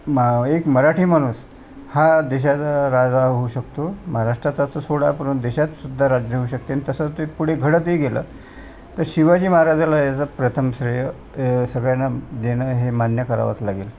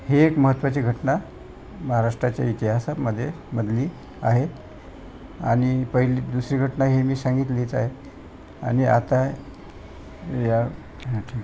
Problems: constant background noise, continuous background conversations